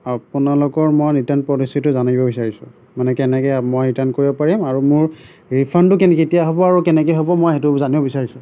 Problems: none marked